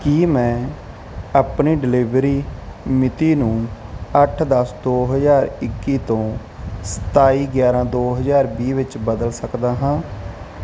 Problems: none marked